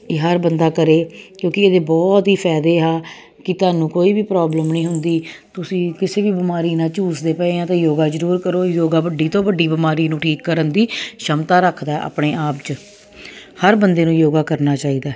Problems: constant background noise